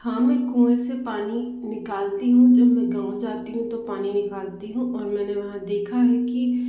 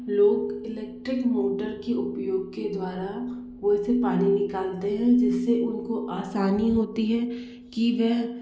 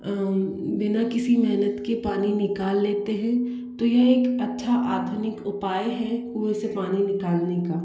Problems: echo